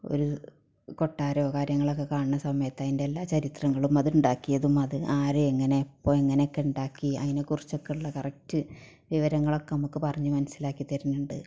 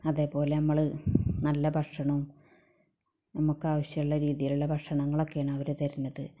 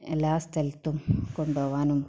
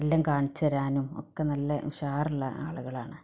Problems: none marked